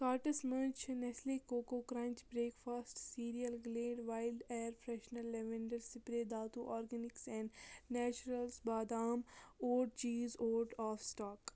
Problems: none marked